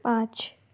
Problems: background sounds at intervals